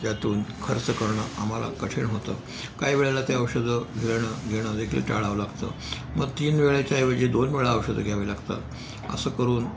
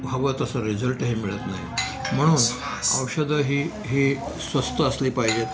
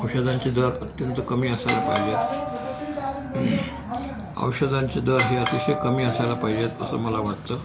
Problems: background sounds at intervals, background conversations at intervals